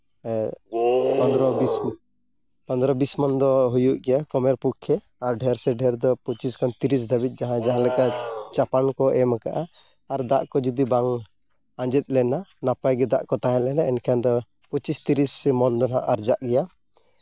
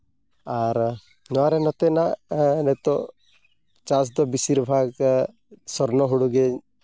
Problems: background sounds at intervals